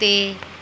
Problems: background sounds at intervals